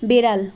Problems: continuous background conversations